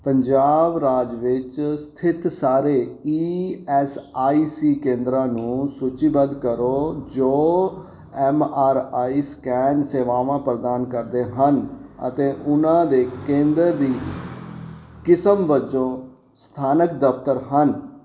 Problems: background sounds at intervals